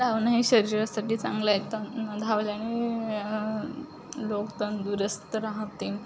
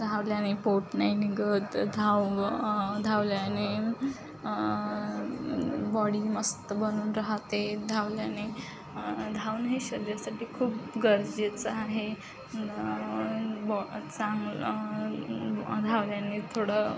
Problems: constant background noise, continuous background conversations